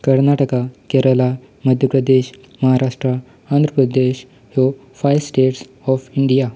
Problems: background sounds at intervals